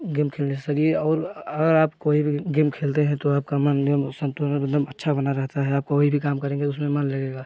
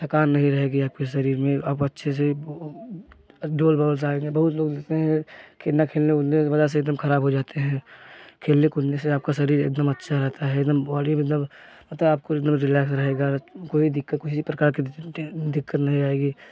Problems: background sounds at intervals, continuous background conversations